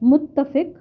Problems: low volume